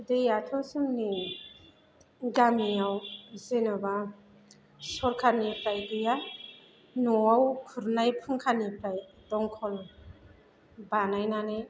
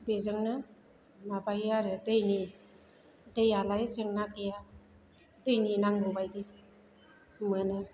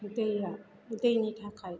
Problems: background sounds at intervals